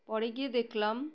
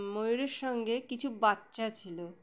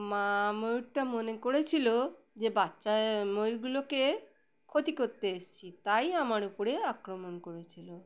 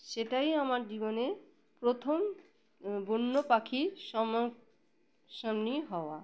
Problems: background sounds at intervals